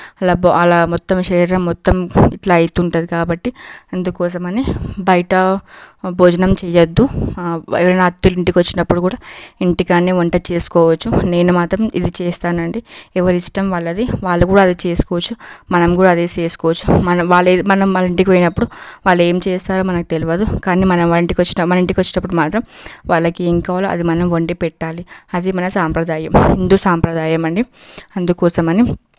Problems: background sounds at intervals